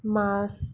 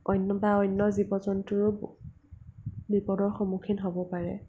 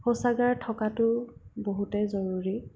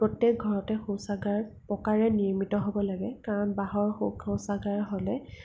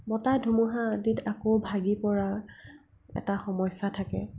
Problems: low volume